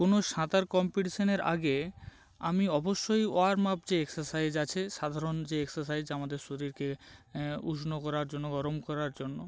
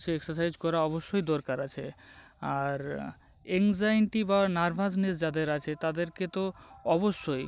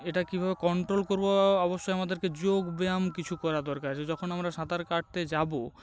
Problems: none marked